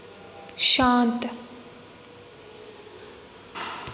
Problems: background sounds at intervals, echo